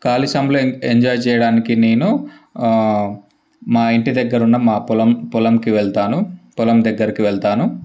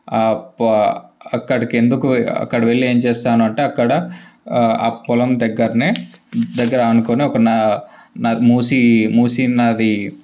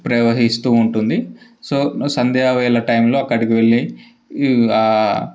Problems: background sounds at intervals